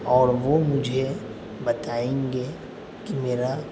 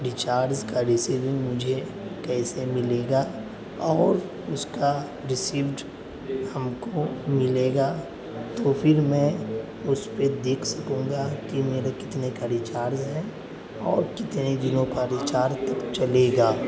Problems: constant background noise, background conversations at intervals